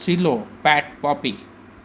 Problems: constant background noise